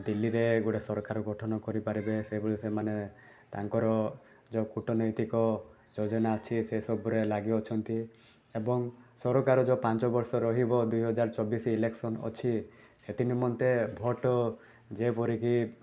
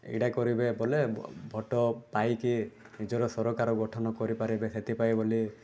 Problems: background sounds at intervals